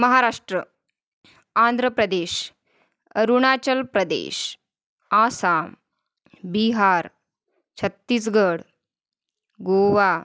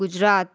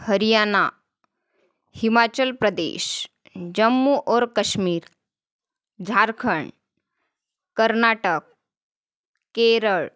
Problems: constant background noise